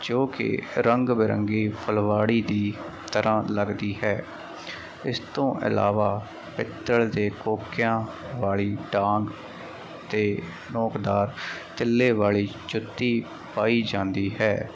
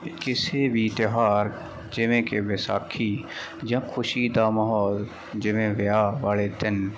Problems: none marked